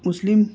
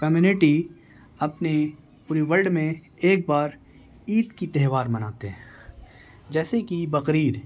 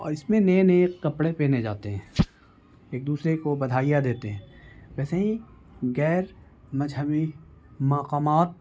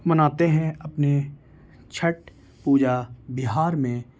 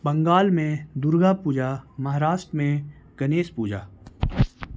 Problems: constant background noise